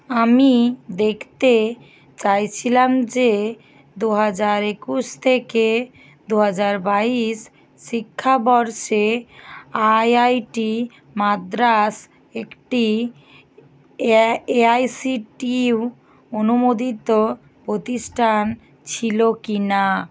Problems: constant background noise